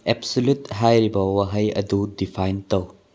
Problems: low volume